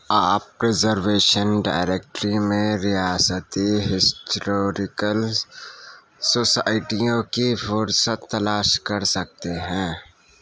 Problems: constant background noise